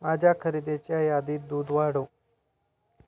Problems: constant background noise, continuous background conversations